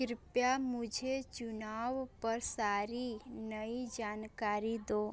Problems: constant background noise, continuous background conversations